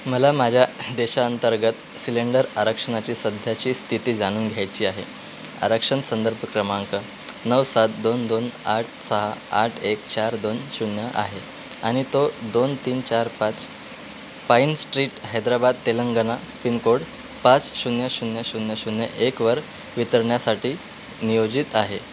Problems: constant background noise